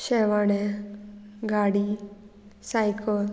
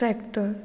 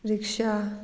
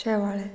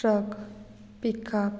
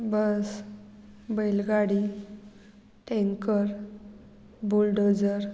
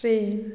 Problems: none marked